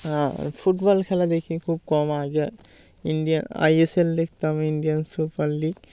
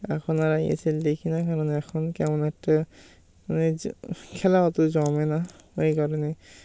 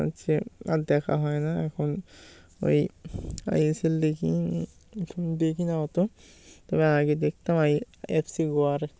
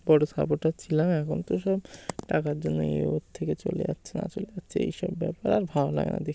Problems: constant background noise